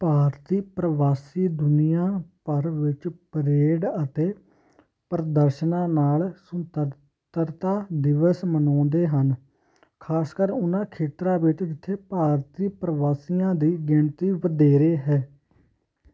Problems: constant background noise